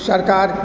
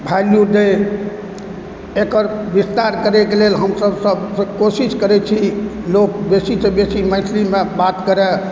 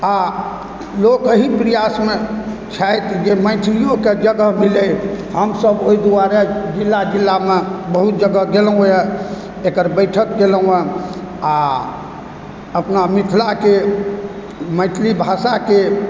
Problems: constant background noise